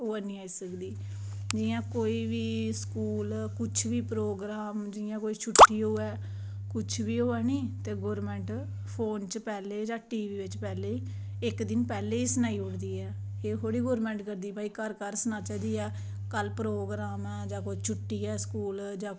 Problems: constant background noise